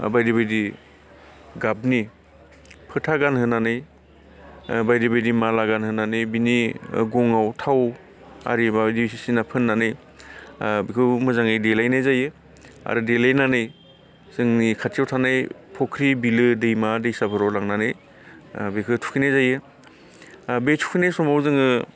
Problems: none marked